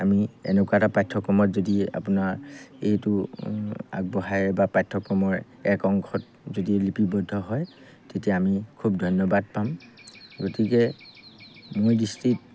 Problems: background sounds at intervals